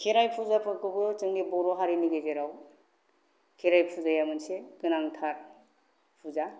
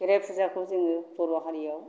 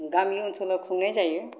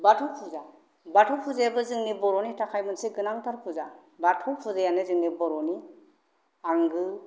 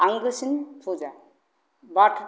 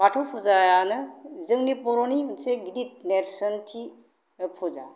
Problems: none marked